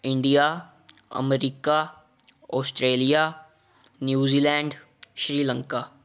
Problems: background conversations at intervals